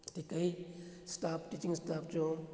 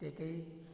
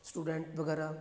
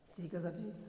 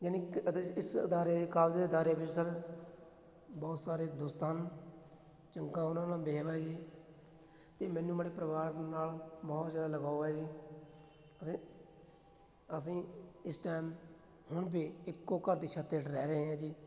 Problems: none marked